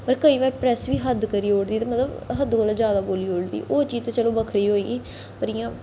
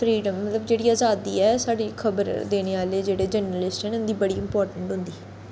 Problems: constant background noise, echo